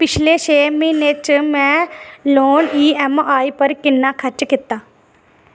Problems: constant background noise